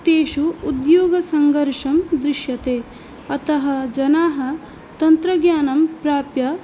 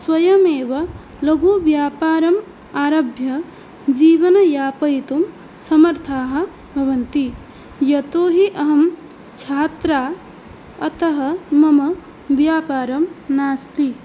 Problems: constant background noise